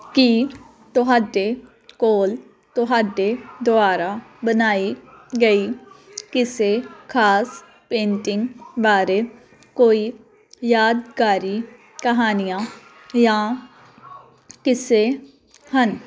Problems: none marked